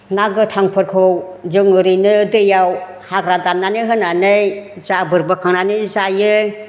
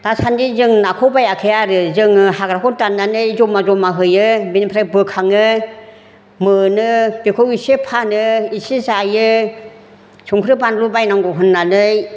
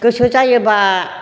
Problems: none marked